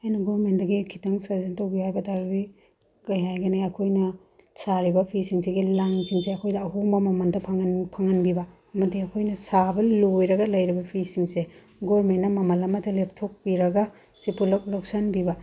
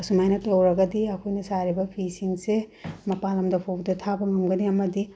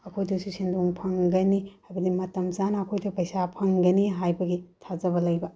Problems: none marked